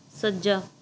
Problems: none marked